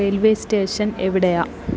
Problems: constant background noise